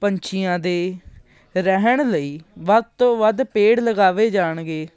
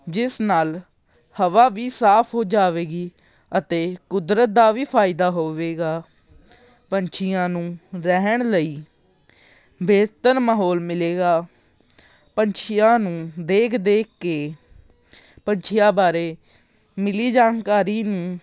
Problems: none marked